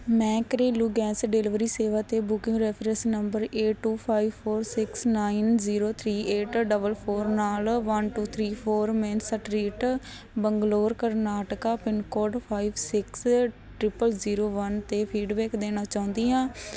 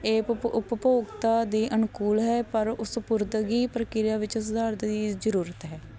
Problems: background sounds at intervals